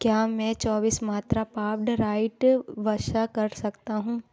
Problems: background sounds at intervals